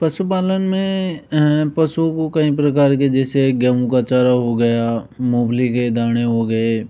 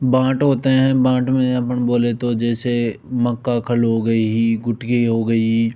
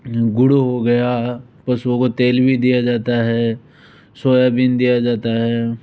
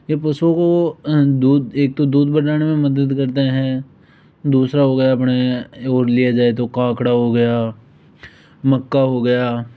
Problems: background sounds at intervals